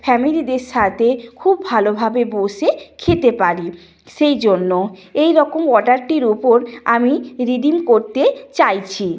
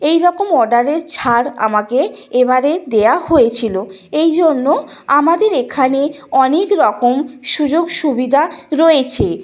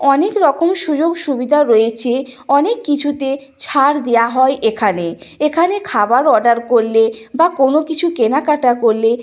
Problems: none marked